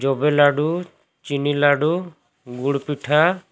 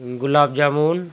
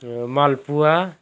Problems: none marked